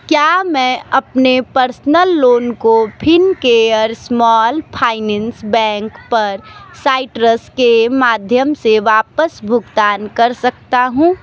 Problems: constant background noise